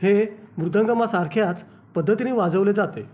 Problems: constant background noise